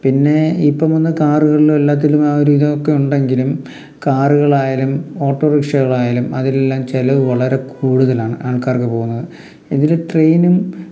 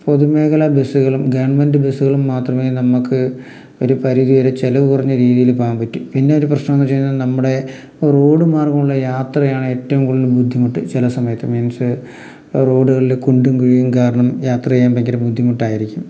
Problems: none marked